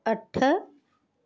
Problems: background sounds at intervals